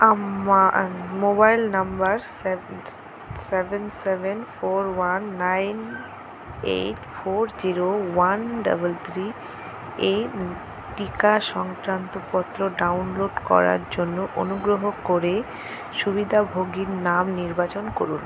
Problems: none marked